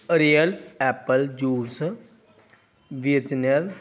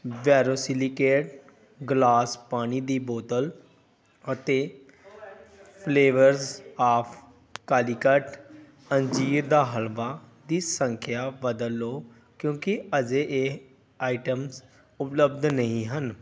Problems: none marked